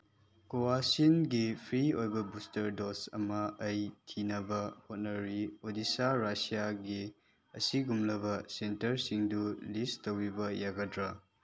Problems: background sounds at intervals